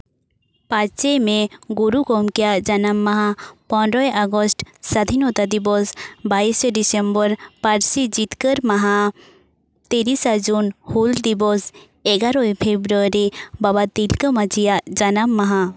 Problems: none marked